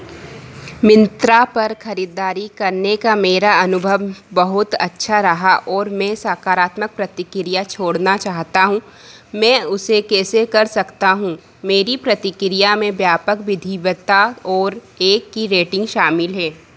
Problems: constant background noise